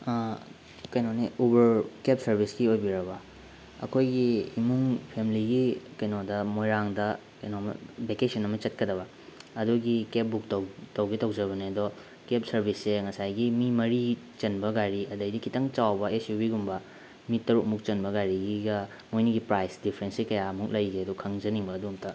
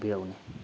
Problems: constant background noise